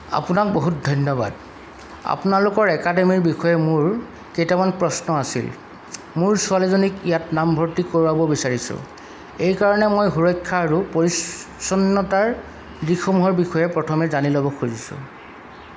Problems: none marked